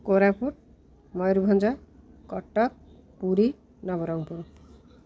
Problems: none marked